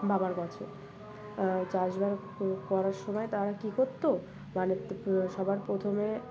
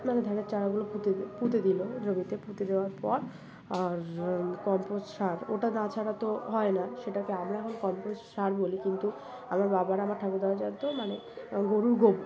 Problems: background sounds at intervals